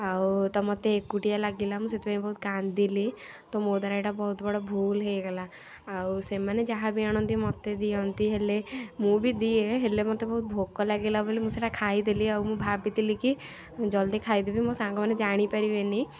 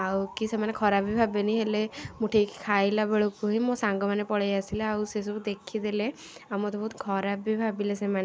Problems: constant background noise